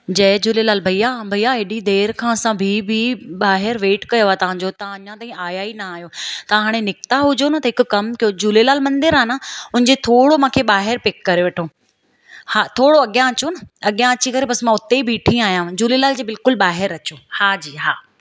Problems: none marked